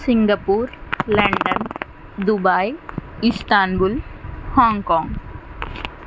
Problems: constant background noise